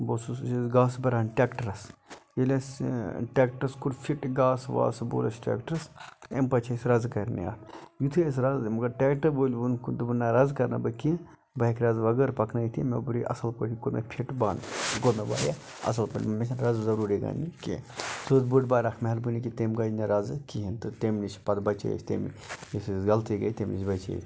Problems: background sounds at intervals